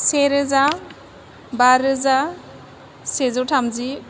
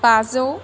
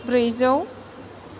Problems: none marked